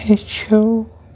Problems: constant background noise